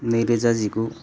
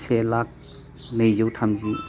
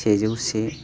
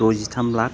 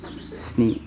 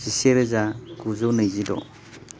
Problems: constant background noise